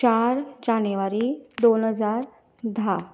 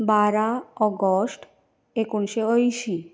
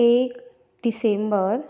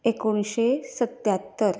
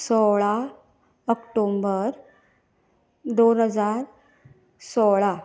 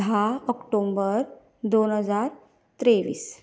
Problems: none marked